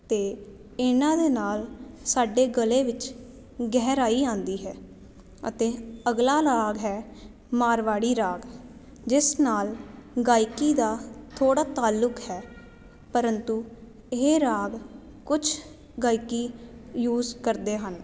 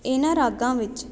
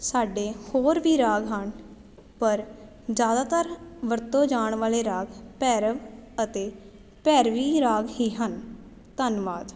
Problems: none marked